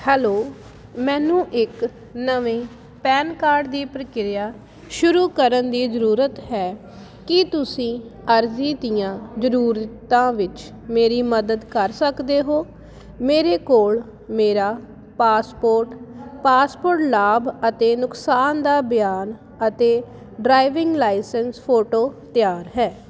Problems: none marked